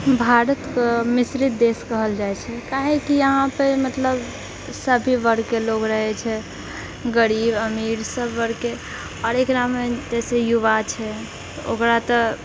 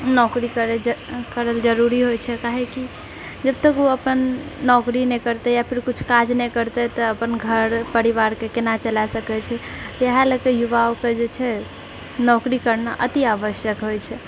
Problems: none marked